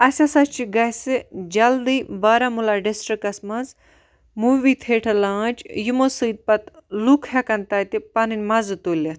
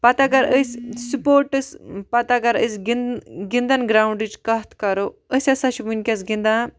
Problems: none marked